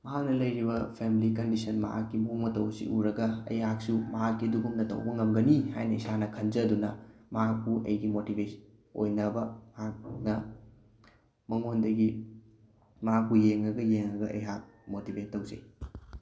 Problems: background sounds at intervals